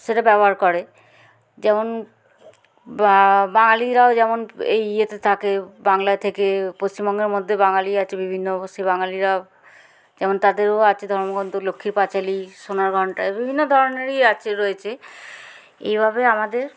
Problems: none marked